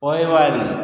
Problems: echo